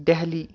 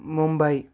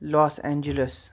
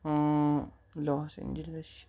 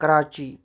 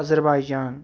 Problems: none marked